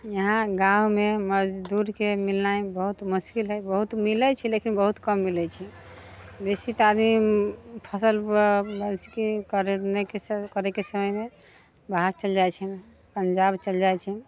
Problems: background sounds at intervals